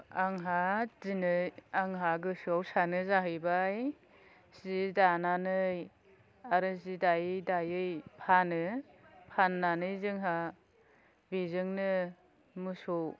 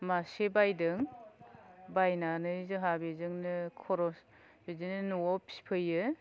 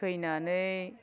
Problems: none marked